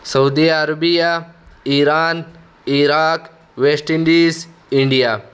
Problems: constant background noise